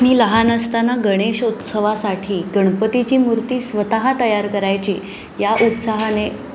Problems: constant background noise, background conversations at intervals